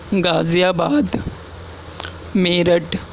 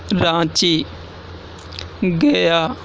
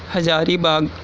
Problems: constant background noise